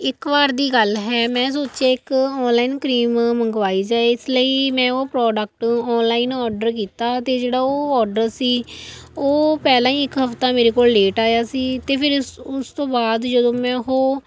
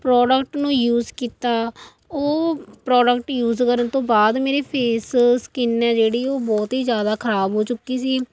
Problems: continuous background conversations